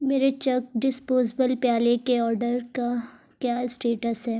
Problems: none marked